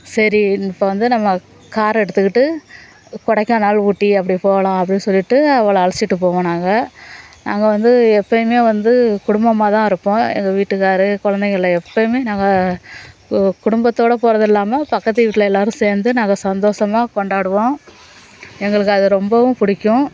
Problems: background sounds at intervals, background conversations at intervals